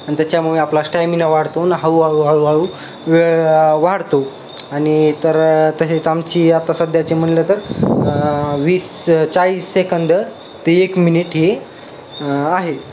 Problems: constant background noise